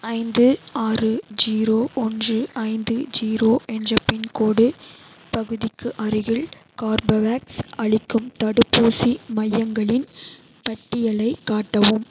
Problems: constant background noise